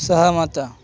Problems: constant background noise, continuous background conversations